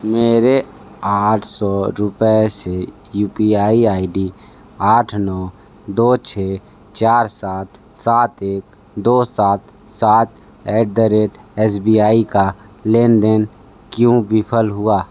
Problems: none marked